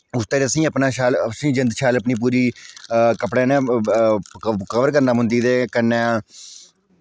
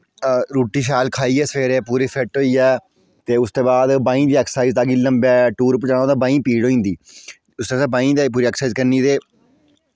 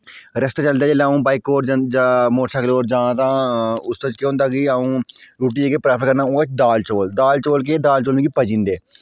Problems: none marked